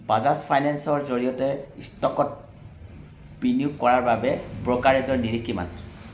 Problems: constant background noise